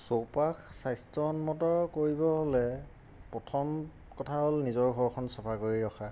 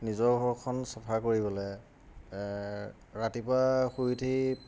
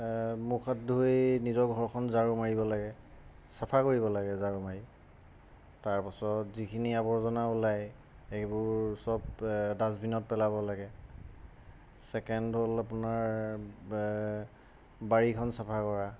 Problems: constant background noise